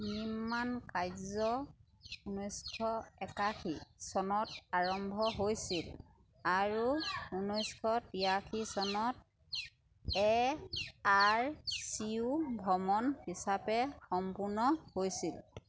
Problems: constant background noise